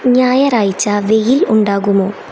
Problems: constant background noise